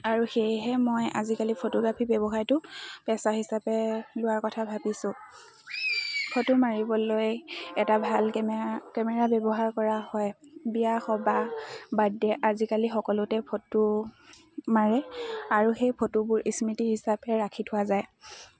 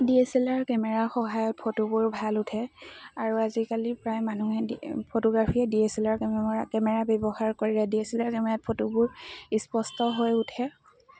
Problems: constant background noise, continuous background conversations